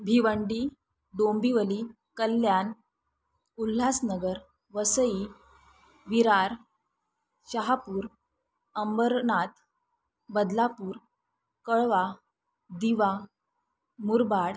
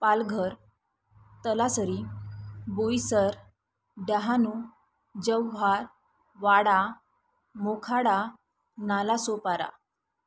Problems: none marked